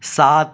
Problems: none marked